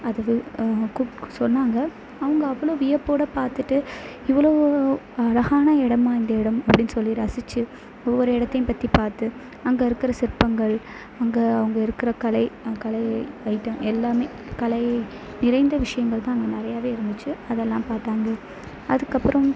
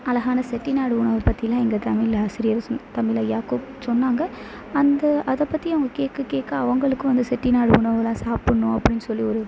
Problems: constant background noise